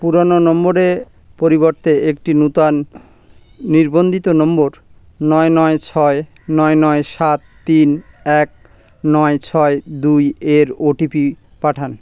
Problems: constant background noise